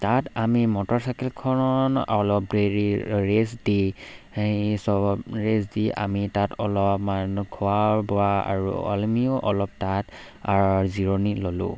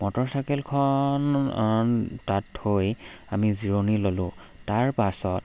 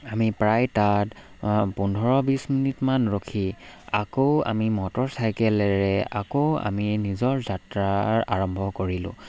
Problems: background sounds at intervals